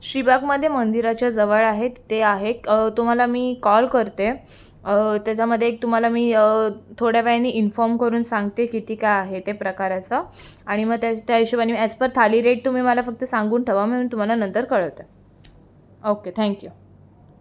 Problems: constant background noise, continuous background conversations